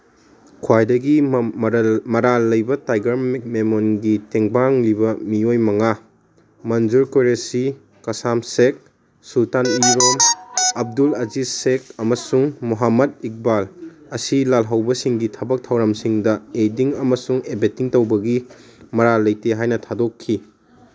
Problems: background sounds at intervals